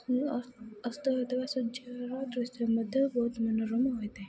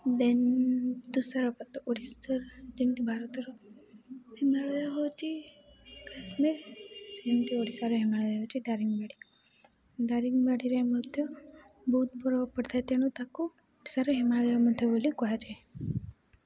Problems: constant background noise